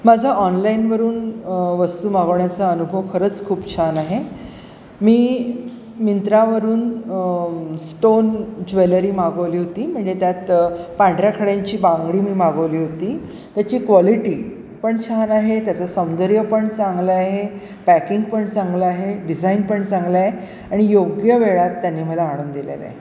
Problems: constant background noise, echo